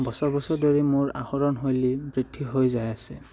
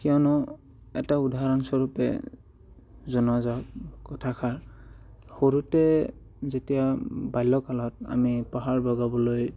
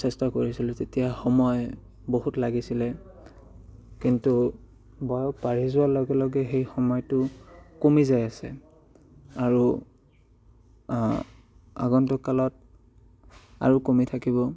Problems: none marked